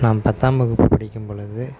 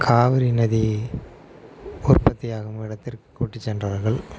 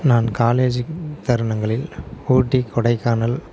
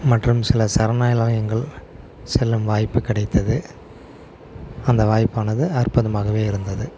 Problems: background sounds at intervals